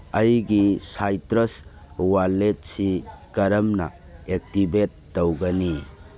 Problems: background sounds at intervals